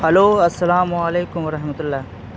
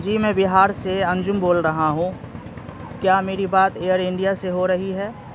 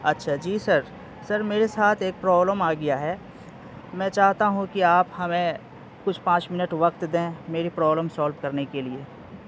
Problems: constant background noise